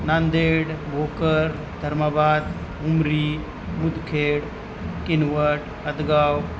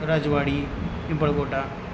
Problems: constant background noise